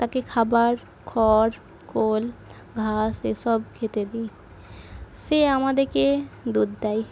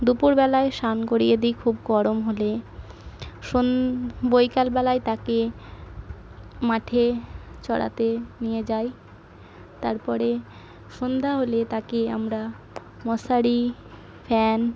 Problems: background sounds at intervals